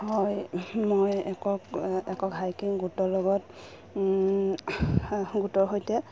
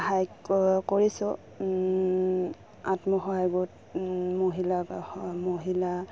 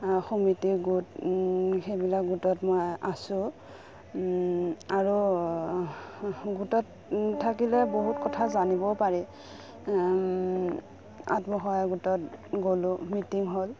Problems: background sounds at intervals